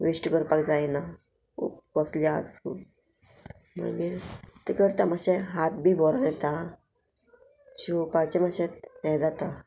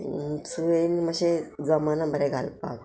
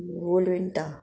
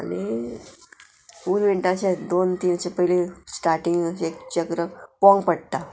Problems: none marked